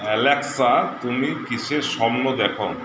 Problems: constant background noise